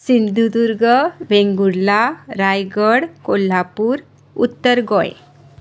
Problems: background sounds at intervals